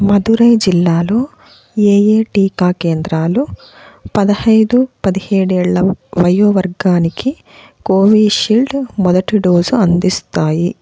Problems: constant background noise